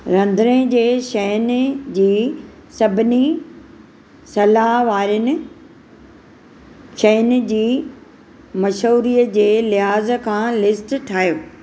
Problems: none marked